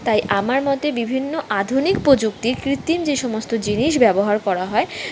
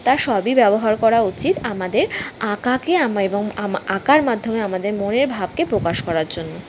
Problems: background sounds at intervals